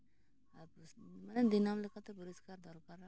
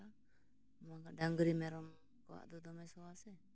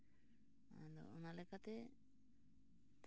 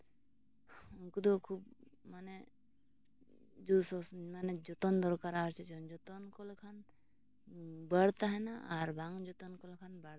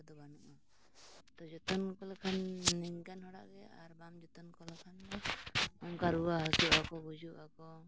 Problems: constant background noise, low volume